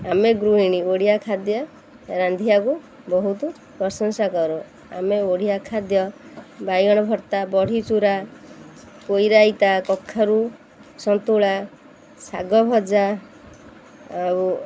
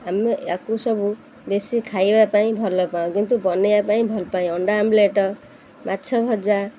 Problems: constant background noise